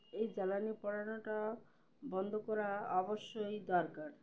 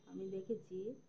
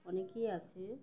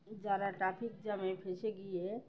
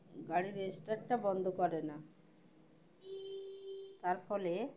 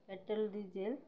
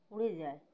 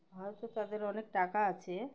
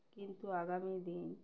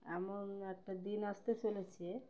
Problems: background sounds at intervals, background conversations at intervals